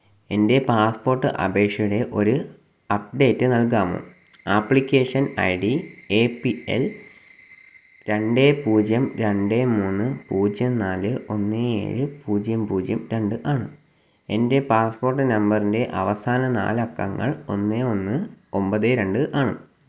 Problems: background sounds at intervals